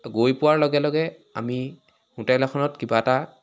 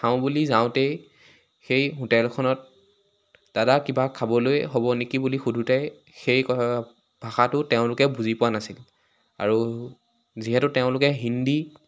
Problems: background sounds at intervals